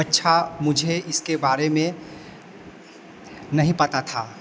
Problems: constant background noise